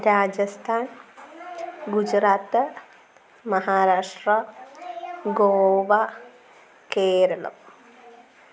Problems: constant background noise, low volume